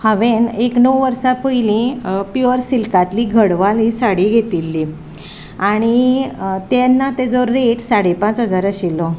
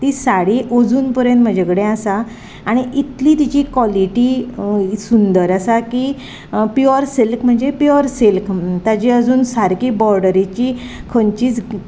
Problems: none marked